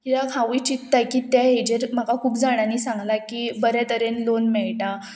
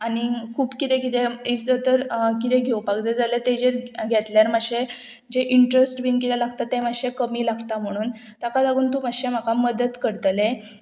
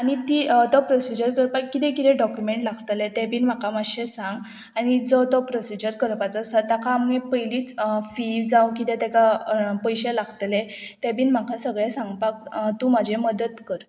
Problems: constant background noise